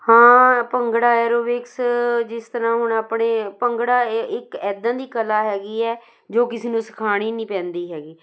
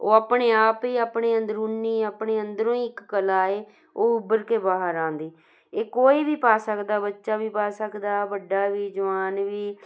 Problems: none marked